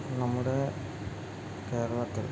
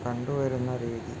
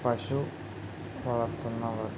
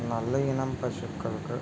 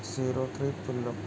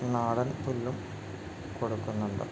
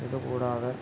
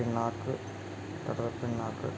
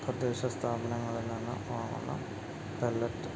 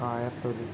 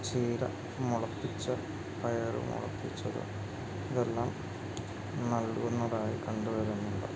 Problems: constant background noise